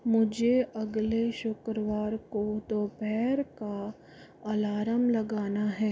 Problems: low volume